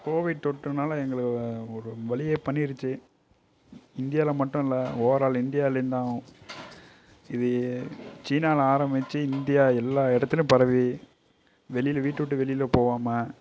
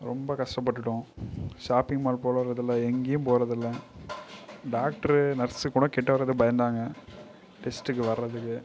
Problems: background sounds at intervals